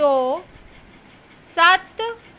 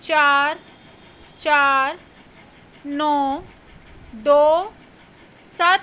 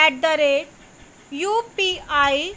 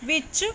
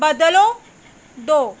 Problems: none marked